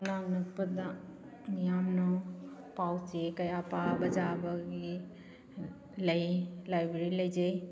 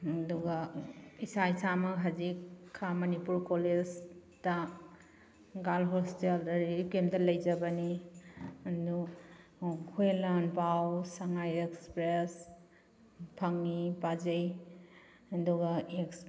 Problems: background sounds at intervals